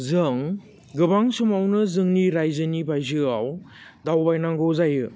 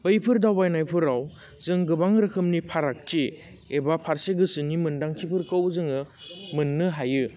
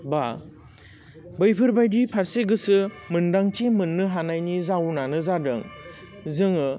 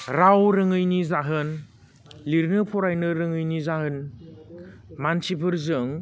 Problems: constant background noise